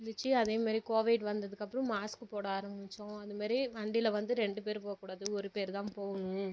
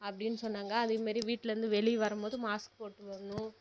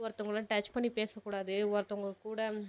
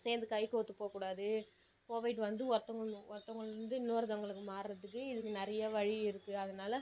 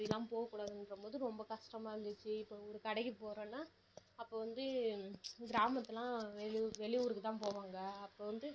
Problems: low volume